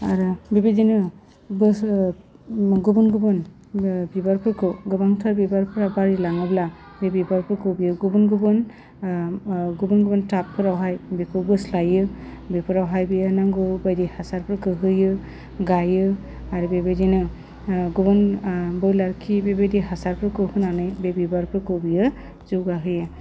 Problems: low volume